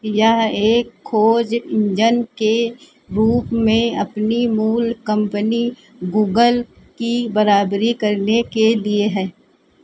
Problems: none marked